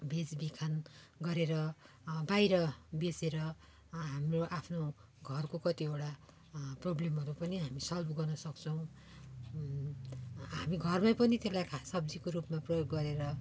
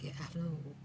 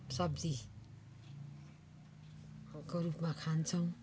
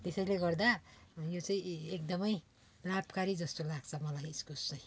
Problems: background sounds at intervals